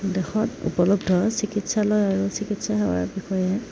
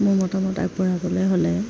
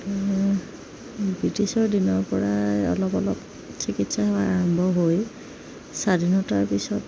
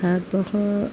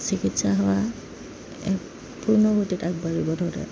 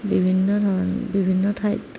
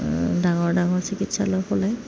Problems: background sounds at intervals